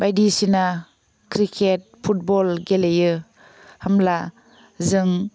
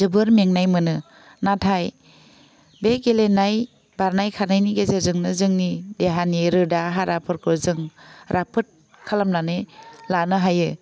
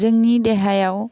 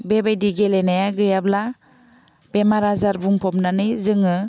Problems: none marked